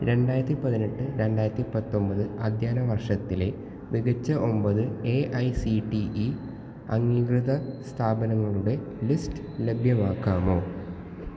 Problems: echo, low volume